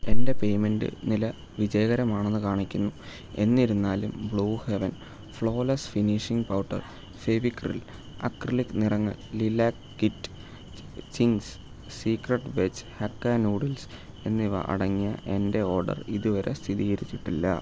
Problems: constant background noise, low volume